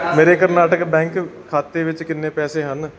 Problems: background sounds at intervals, background conversations at intervals